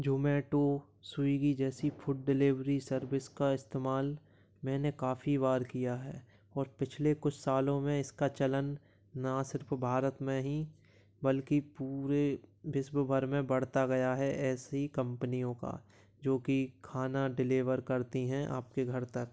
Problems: background sounds at intervals